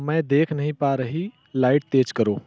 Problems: low volume